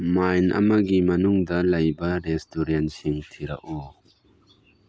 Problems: background sounds at intervals